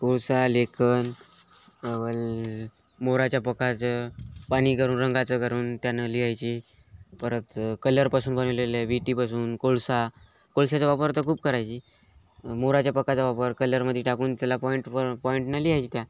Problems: none marked